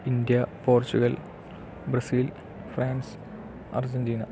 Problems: low volume